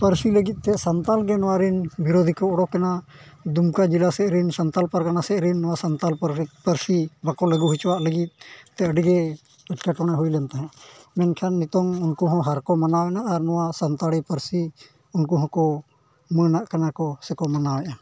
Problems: none marked